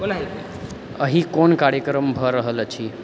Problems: background conversations at intervals